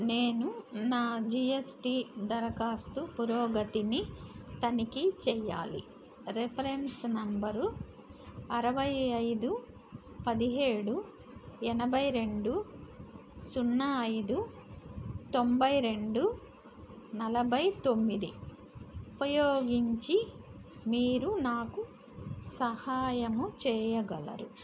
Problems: constant background noise